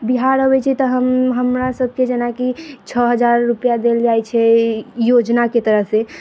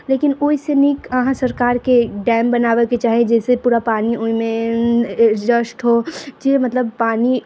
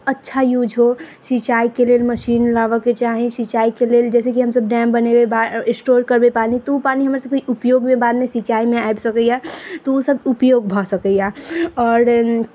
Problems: background sounds at intervals